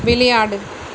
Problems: constant background noise